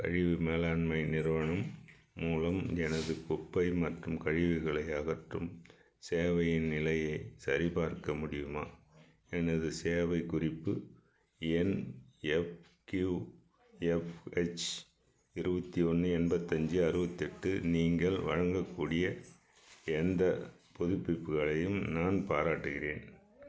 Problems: background sounds at intervals